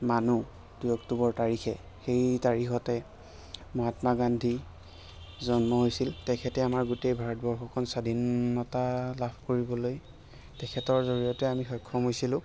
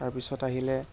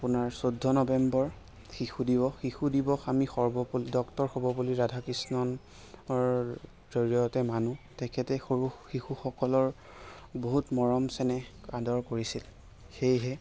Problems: constant background noise